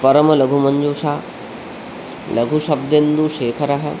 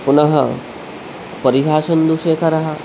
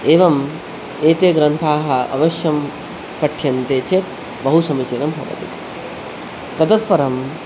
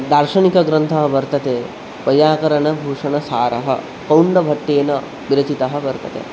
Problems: constant background noise